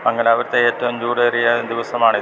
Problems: none marked